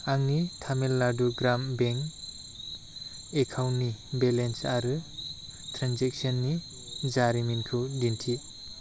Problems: low volume